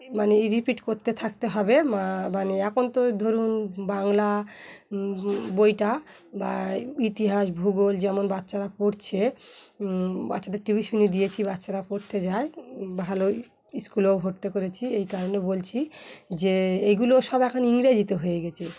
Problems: background sounds at intervals